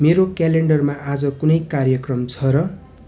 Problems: continuous background conversations